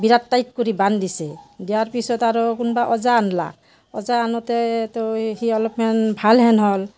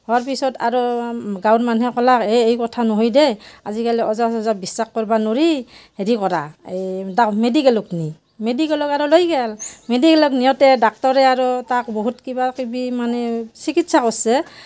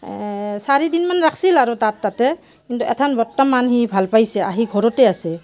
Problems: constant background noise